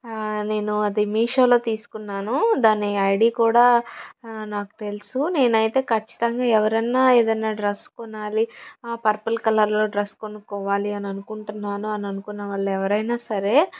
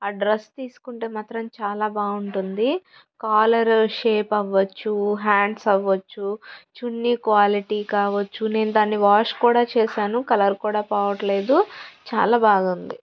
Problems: background sounds at intervals